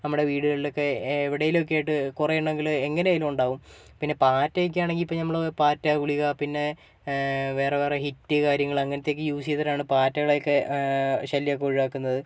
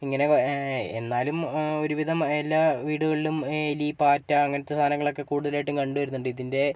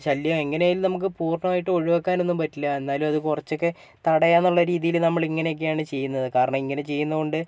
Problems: none marked